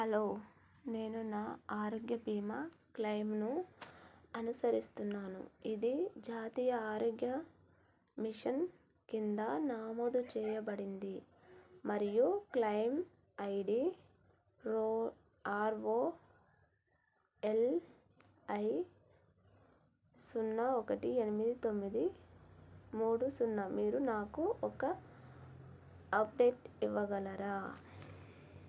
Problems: none marked